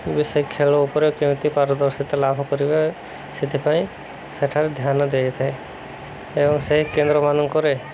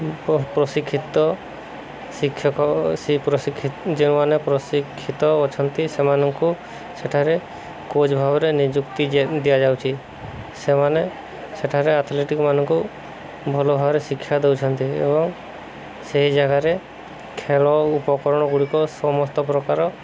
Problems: constant background noise